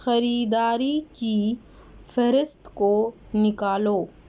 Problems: none marked